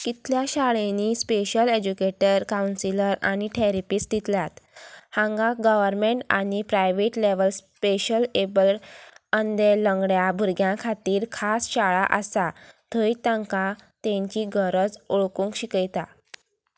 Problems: none marked